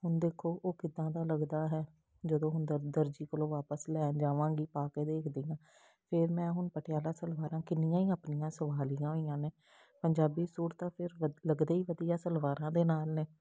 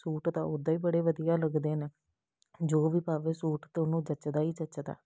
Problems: background sounds at intervals